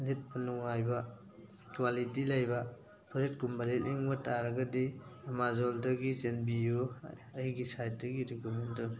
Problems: constant background noise, background conversations at intervals